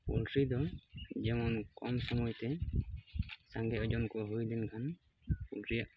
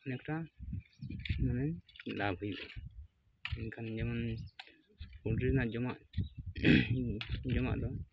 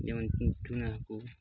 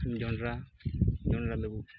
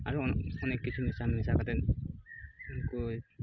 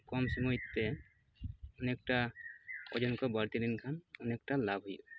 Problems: constant background noise